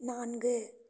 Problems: low volume